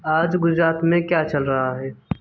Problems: background sounds at intervals